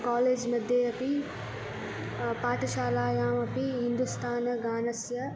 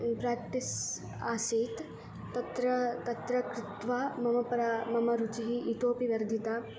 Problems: background sounds at intervals